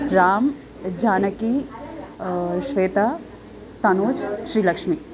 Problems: constant background noise